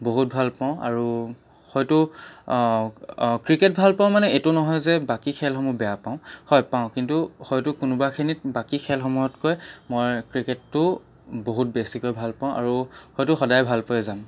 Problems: background sounds at intervals